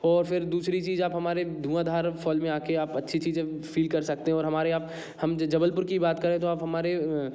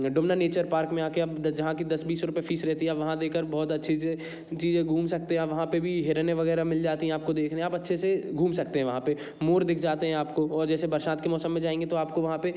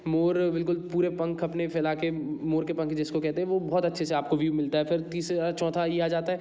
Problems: constant background noise